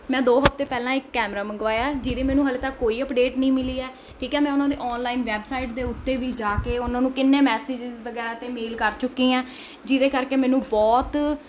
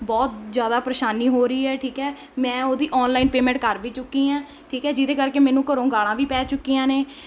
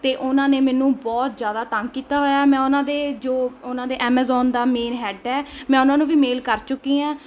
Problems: constant background noise